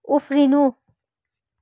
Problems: none marked